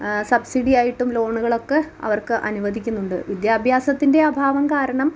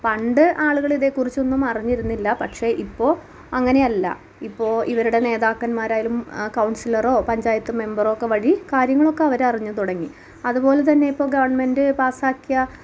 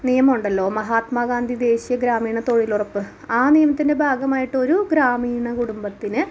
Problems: none marked